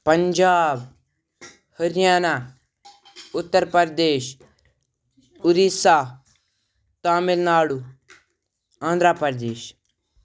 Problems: background sounds at intervals